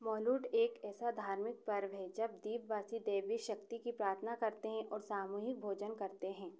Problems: echo